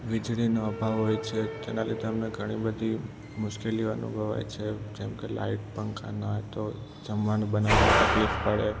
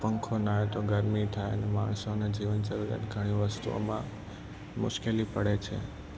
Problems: constant background noise, low volume